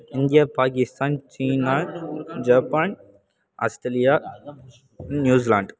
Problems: constant background noise